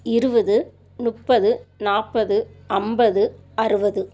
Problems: constant background noise